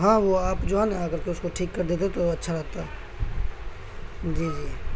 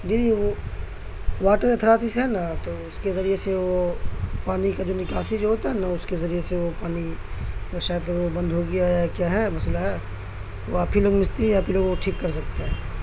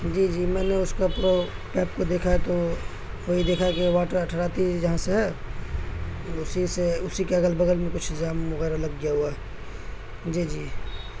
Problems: constant background noise